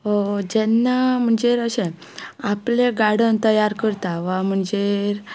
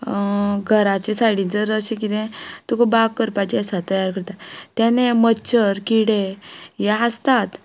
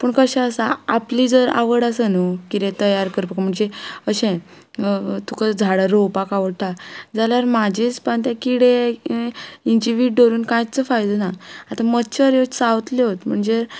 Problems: none marked